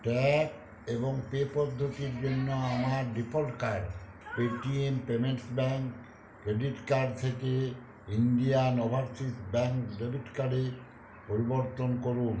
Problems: constant background noise